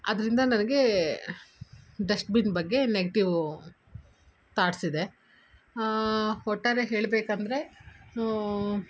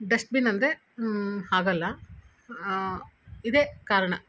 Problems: none marked